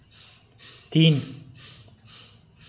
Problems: constant background noise